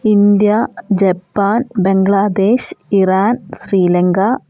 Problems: none marked